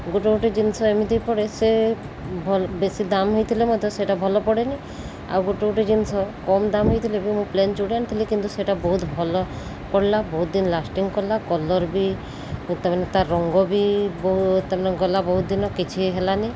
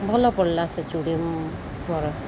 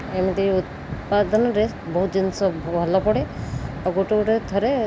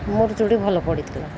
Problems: none marked